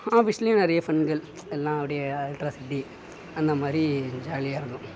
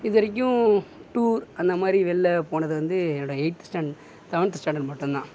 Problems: background sounds at intervals